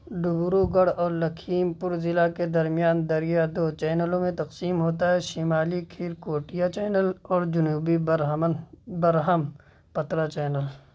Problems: none marked